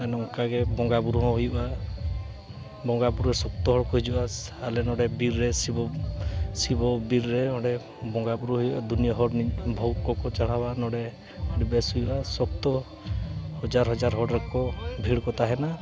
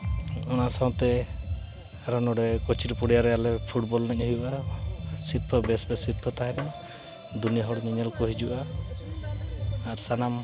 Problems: constant background noise, continuous background conversations